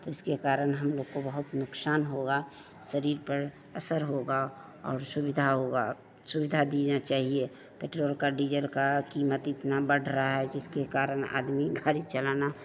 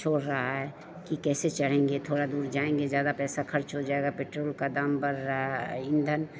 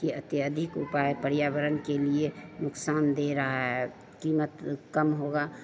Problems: constant background noise, background conversations at intervals